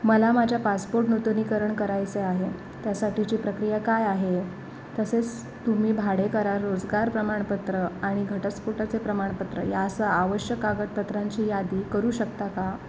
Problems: none marked